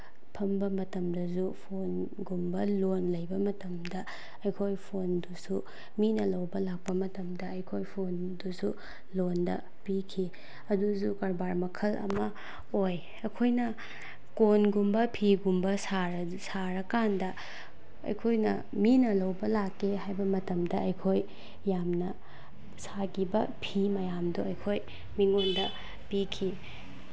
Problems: none marked